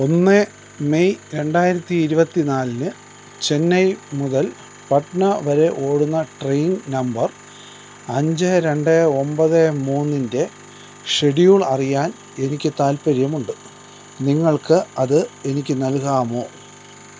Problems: constant background noise